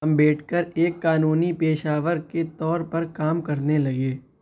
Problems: none marked